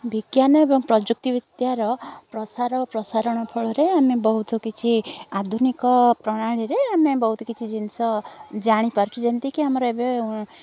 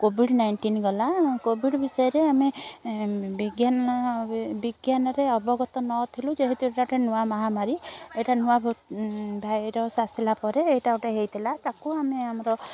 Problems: constant background noise, continuous background conversations